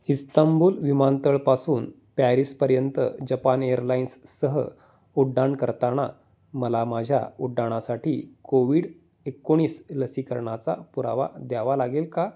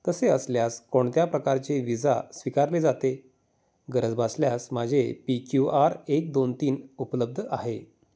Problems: none marked